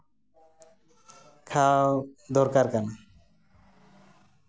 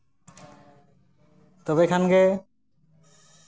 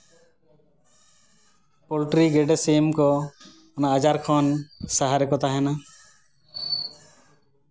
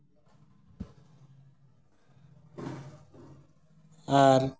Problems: background sounds at intervals, background conversations at intervals